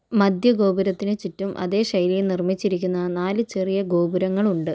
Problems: none marked